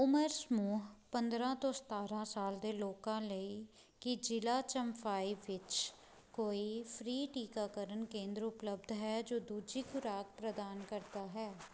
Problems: background sounds at intervals